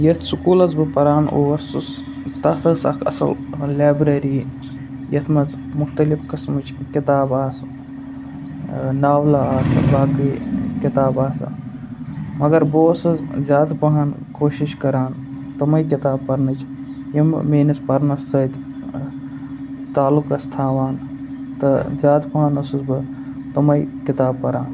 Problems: constant background noise, background conversations at intervals